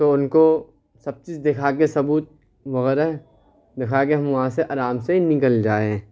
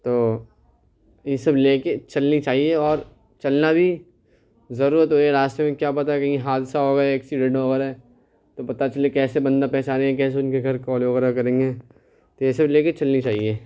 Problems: none marked